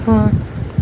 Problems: background sounds at intervals